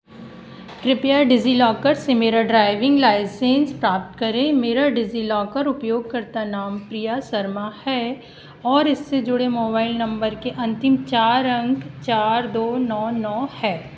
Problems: constant background noise